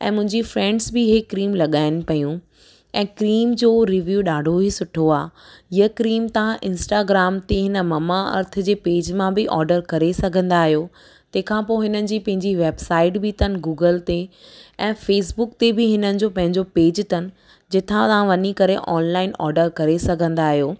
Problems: none marked